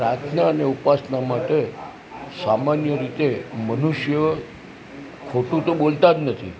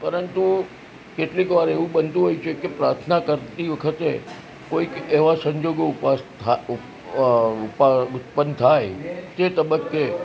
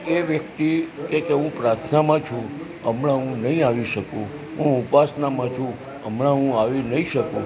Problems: constant background noise